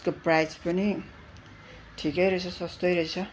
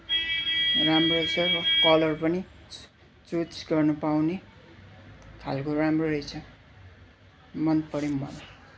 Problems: constant background noise